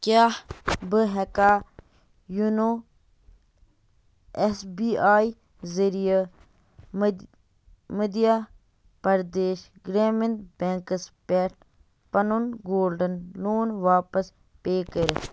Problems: background sounds at intervals